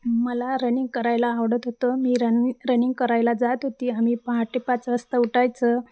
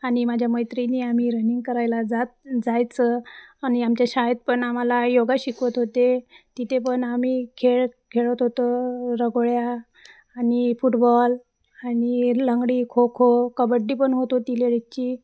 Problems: constant background noise, background conversations at intervals